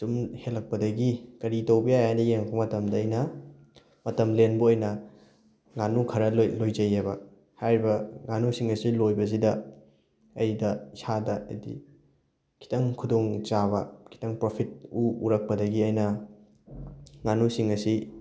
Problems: none marked